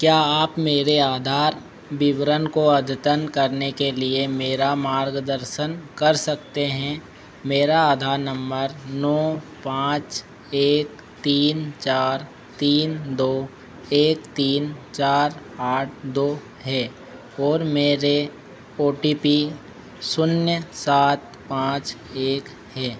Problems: constant background noise